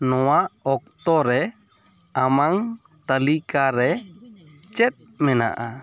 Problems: background sounds at intervals, continuous background conversations